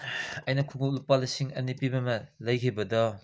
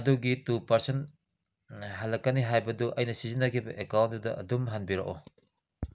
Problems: none marked